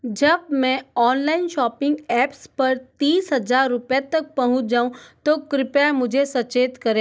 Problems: none marked